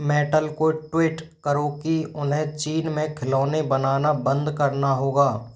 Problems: constant background noise